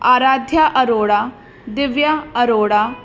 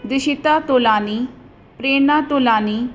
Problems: constant background noise